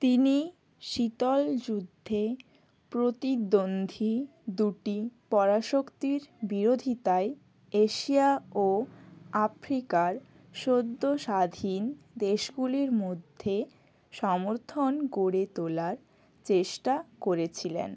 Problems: none marked